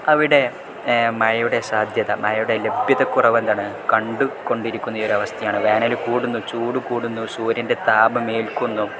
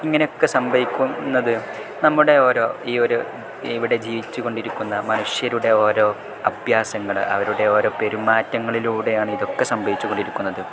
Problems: none marked